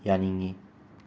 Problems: constant background noise